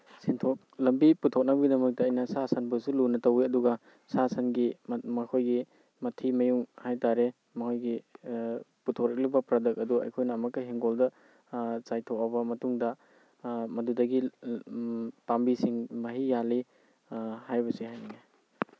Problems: background sounds at intervals